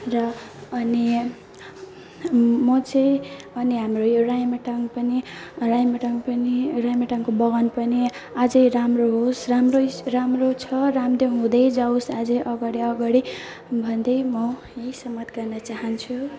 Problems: none marked